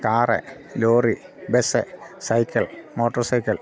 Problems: constant background noise